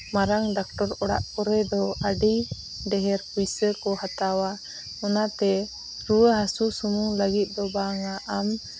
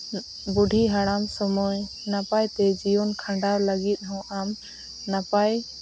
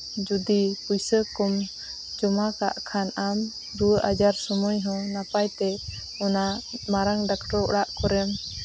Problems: none marked